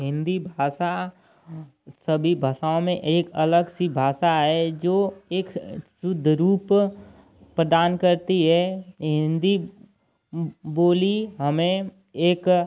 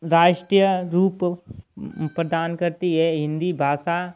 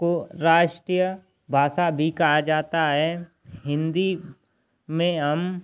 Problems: constant background noise